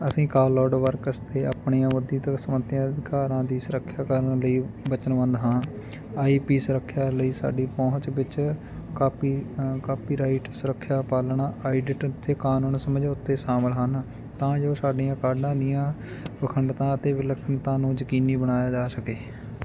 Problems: none marked